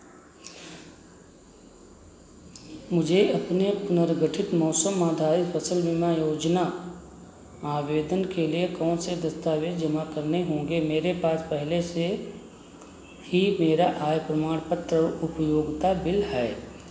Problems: background sounds at intervals